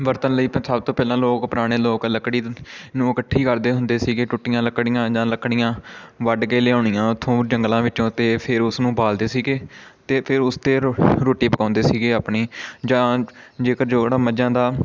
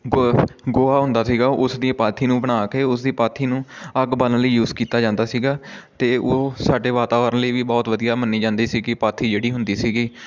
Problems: constant background noise